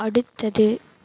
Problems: none marked